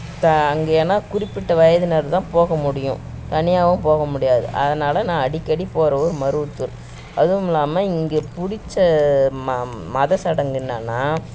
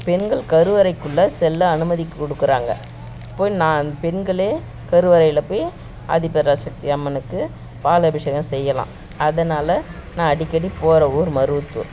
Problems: background sounds at intervals